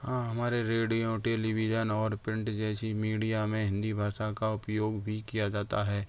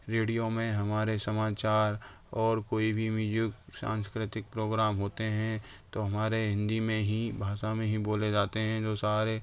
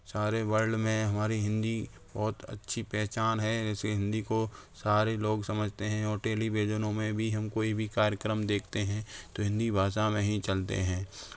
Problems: constant background noise